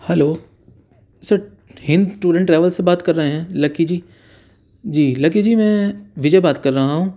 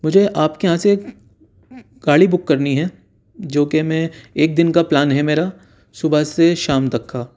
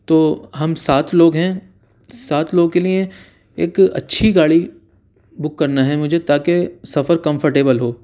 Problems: none marked